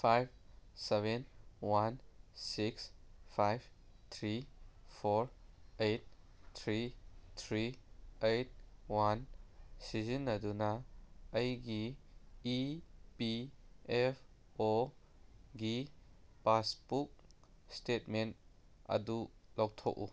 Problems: none marked